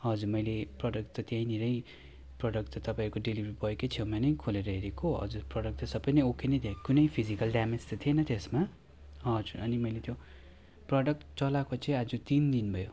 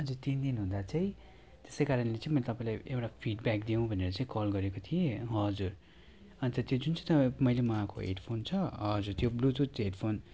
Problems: background conversations at intervals